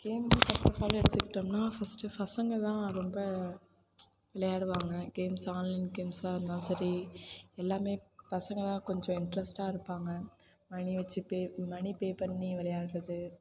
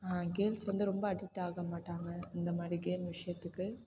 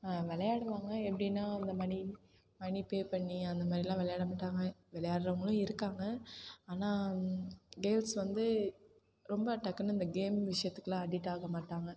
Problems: constant background noise